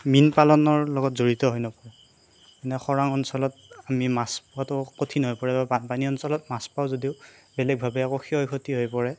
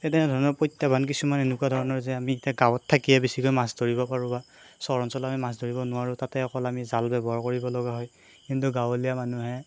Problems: constant background noise